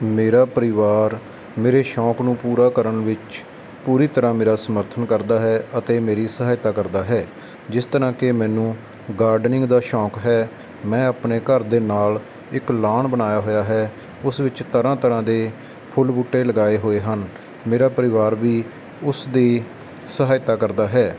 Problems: constant background noise